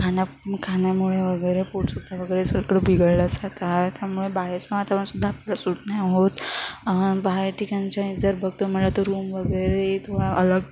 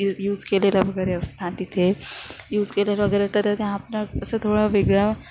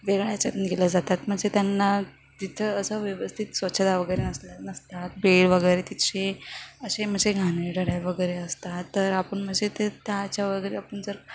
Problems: none marked